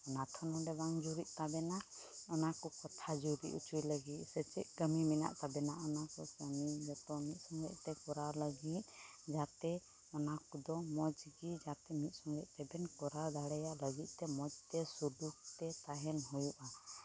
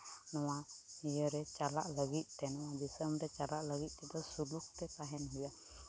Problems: constant background noise